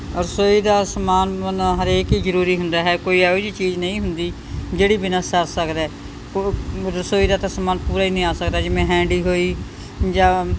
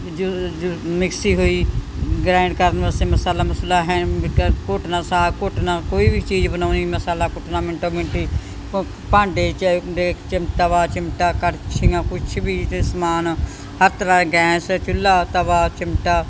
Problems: background sounds at intervals